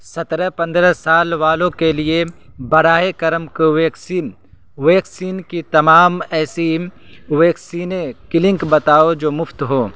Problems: constant background noise